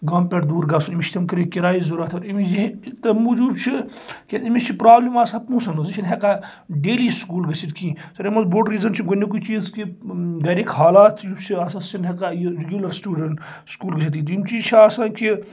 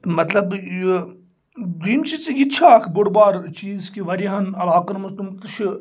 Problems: none marked